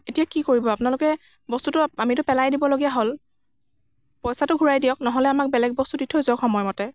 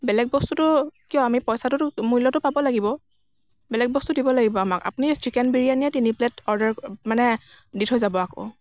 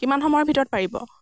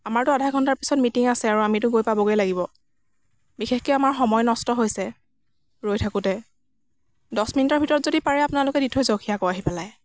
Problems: constant background noise